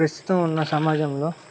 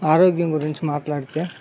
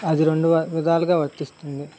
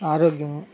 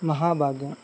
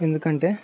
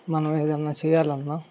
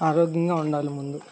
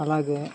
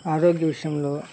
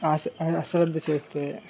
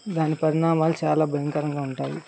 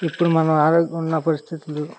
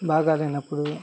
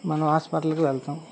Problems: constant background noise